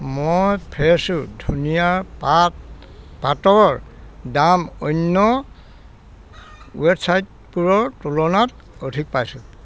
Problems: background sounds at intervals, background conversations at intervals